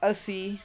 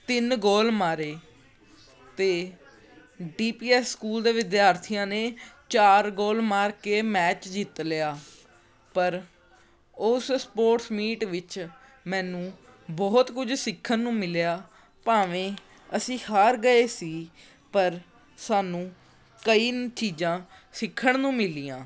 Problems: background conversations at intervals